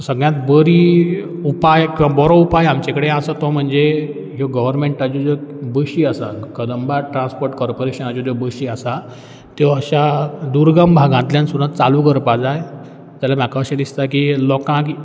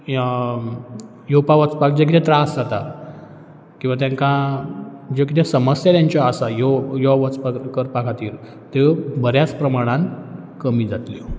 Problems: none marked